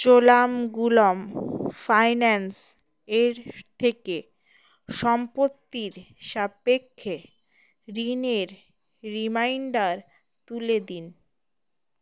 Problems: none marked